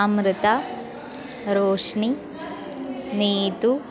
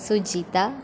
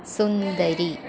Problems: constant background noise